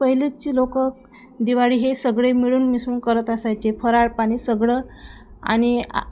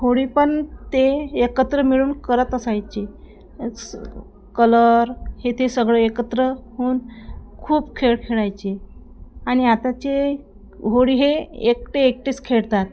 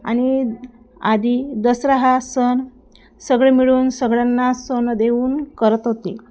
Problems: constant background noise, background conversations at intervals